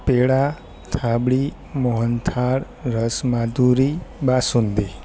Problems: constant background noise